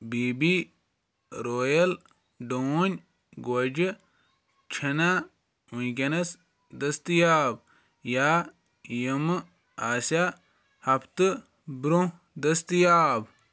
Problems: background sounds at intervals